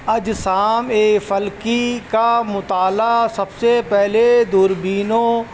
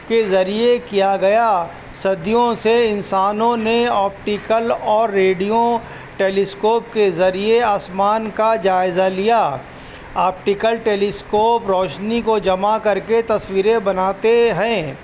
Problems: constant background noise